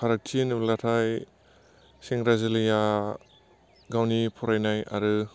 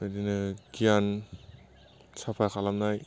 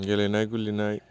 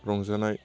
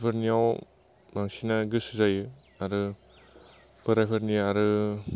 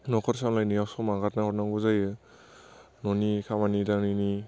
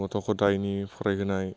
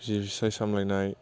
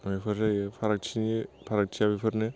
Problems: constant background noise